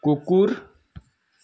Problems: none marked